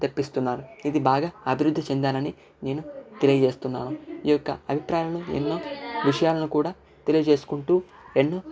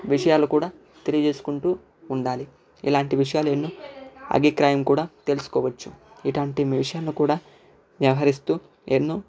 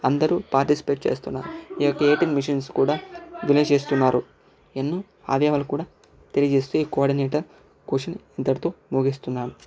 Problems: background sounds at intervals, background conversations at intervals, low volume